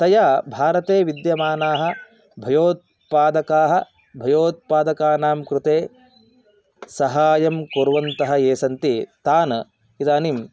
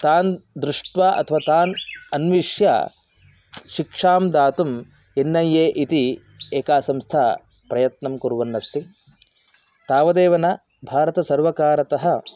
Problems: background sounds at intervals